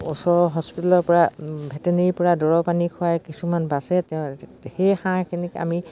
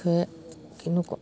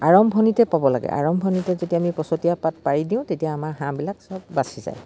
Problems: none marked